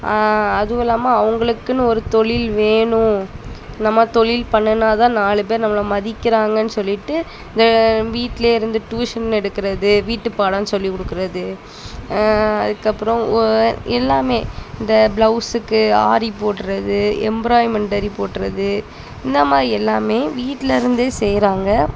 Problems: constant background noise, background conversations at intervals